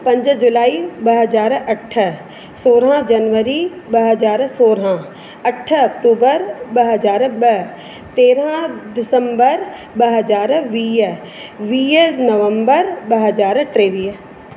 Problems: constant background noise, echo